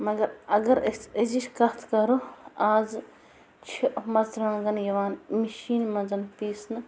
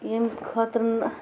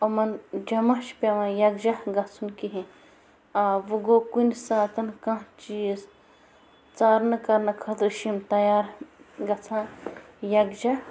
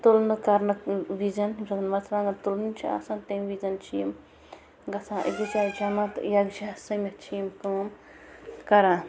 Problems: constant background noise